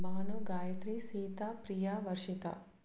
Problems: low volume